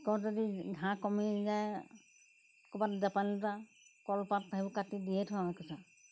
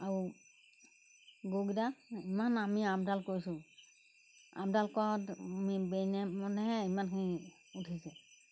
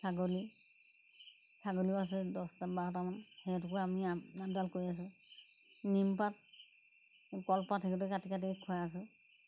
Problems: background sounds at intervals